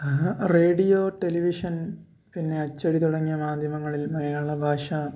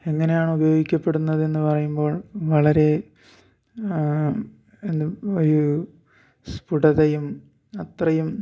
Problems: none marked